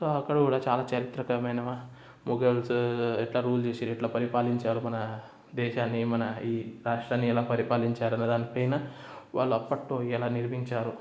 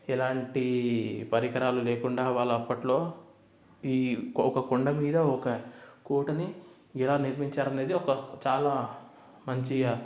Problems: none marked